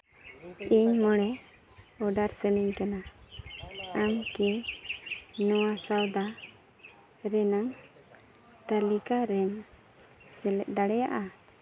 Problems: constant background noise